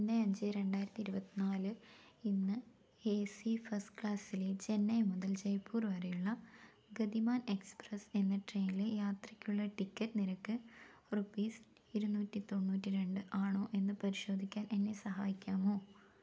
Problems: low volume